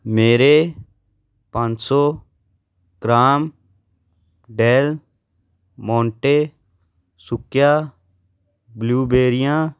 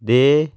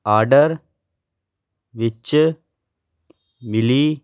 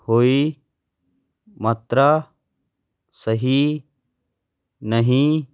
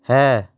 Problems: background sounds at intervals